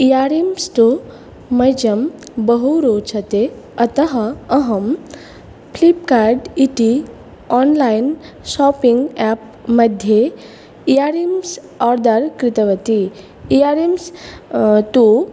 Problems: none marked